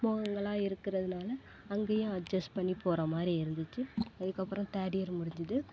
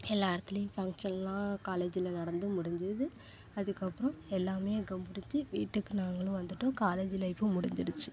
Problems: constant background noise